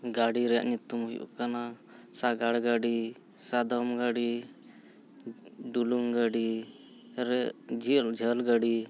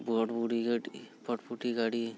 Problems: none marked